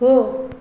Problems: low volume